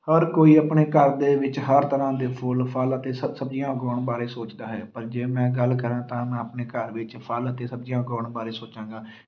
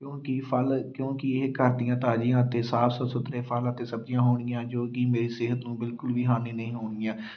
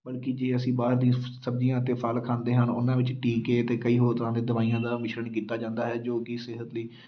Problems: background sounds at intervals